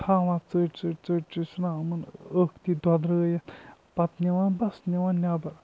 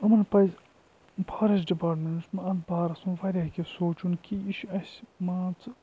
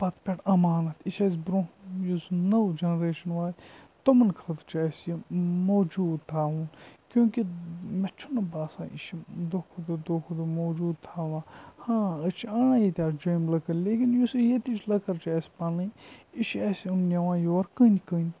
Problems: background sounds at intervals, low volume